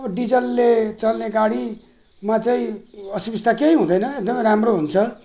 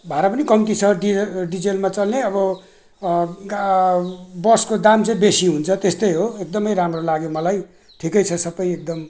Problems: none marked